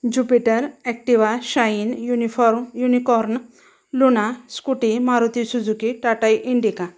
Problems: background sounds at intervals